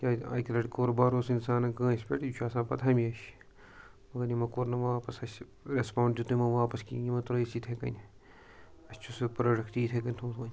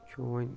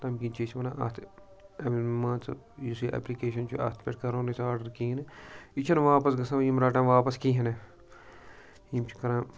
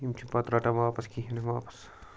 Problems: background sounds at intervals, background conversations at intervals